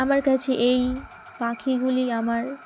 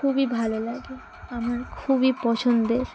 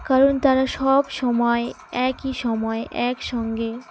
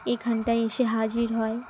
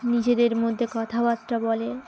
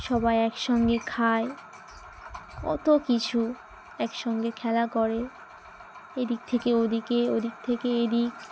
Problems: constant background noise, background conversations at intervals